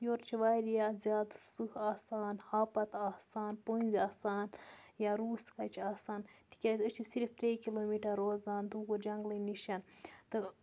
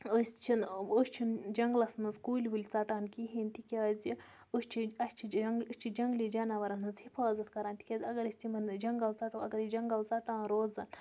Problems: background sounds at intervals